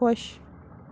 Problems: constant background noise